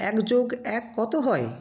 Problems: background sounds at intervals